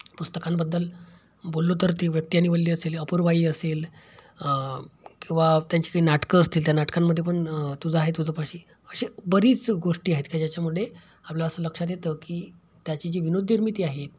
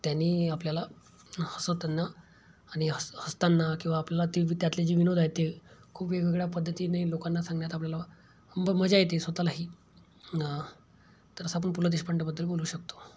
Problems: background sounds at intervals